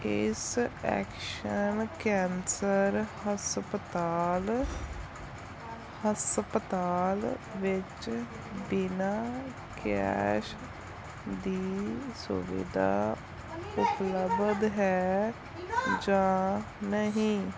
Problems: background sounds at intervals